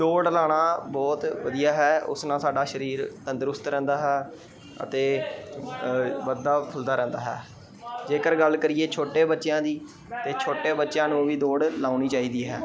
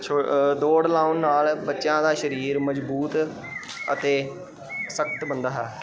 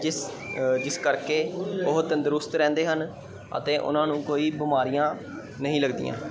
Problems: constant background noise